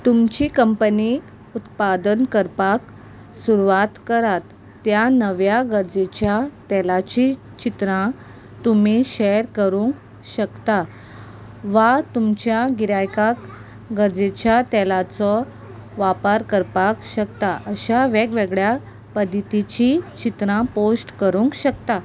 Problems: none marked